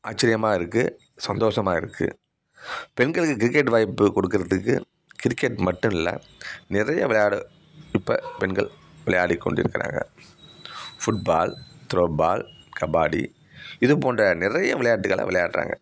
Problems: background sounds at intervals